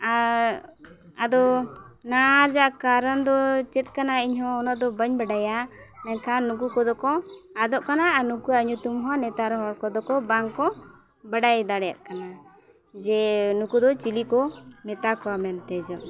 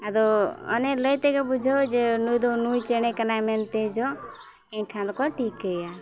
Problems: background sounds at intervals, continuous background conversations